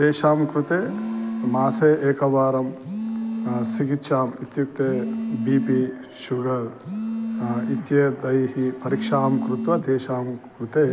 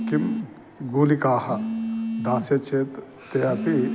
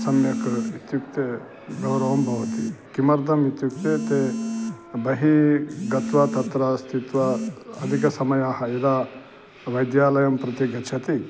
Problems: constant background noise